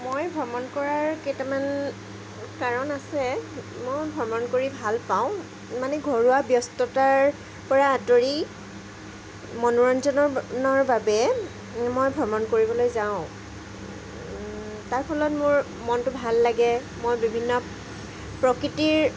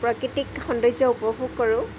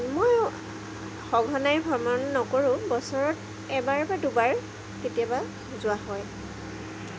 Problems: background sounds at intervals